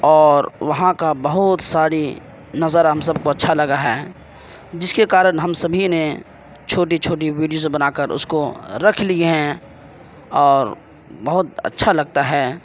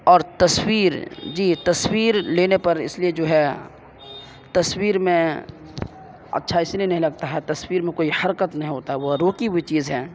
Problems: constant background noise